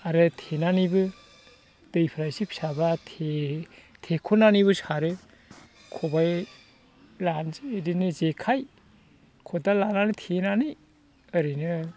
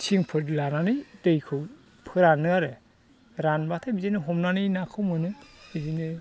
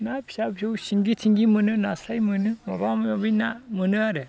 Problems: constant background noise